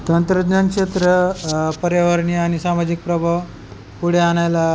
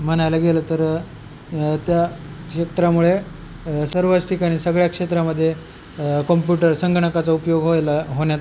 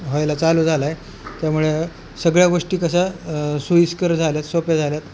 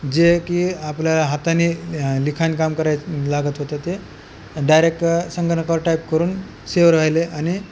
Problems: none marked